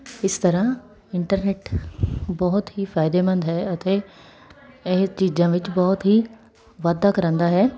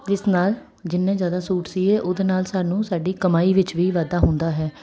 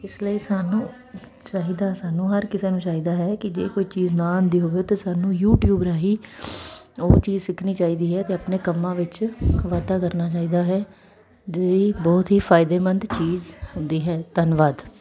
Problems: none marked